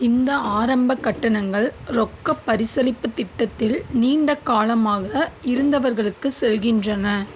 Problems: constant background noise